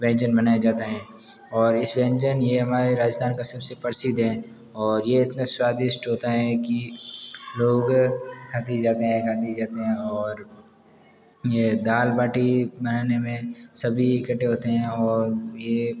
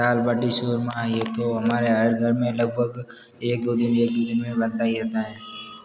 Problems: background sounds at intervals, background conversations at intervals